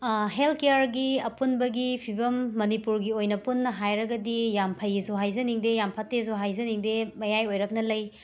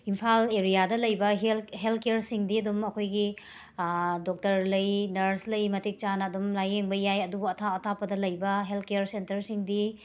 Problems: background sounds at intervals